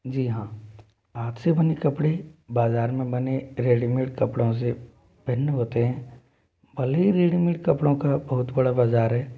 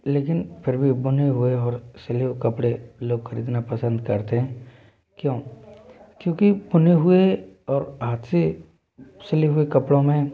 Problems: constant background noise, continuous background conversations